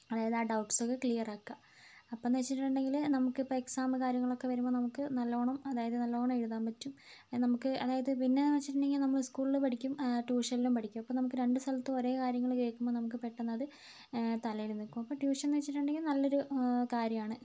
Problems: low volume